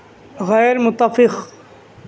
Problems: none marked